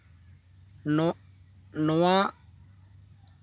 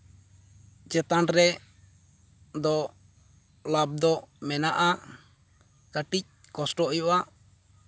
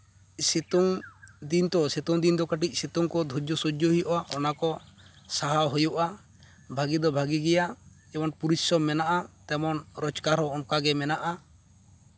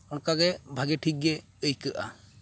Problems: constant background noise